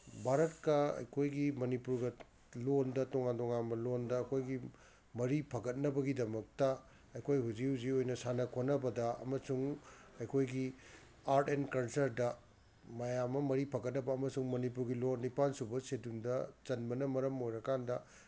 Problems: background sounds at intervals